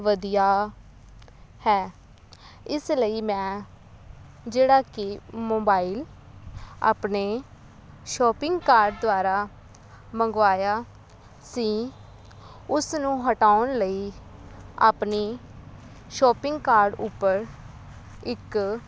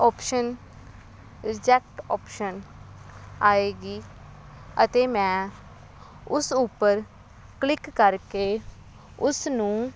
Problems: none marked